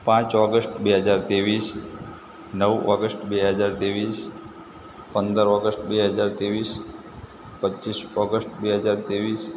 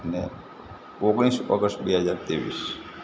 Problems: constant background noise